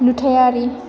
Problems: constant background noise